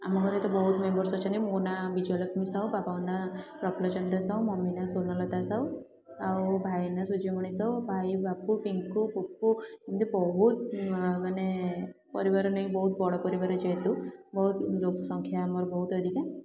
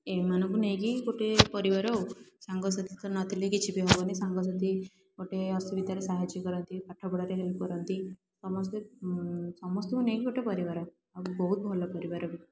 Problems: low volume